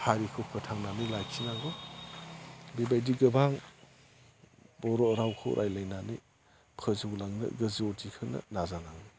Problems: constant background noise